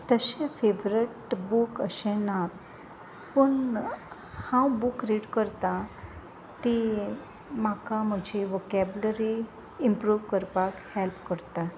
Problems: background sounds at intervals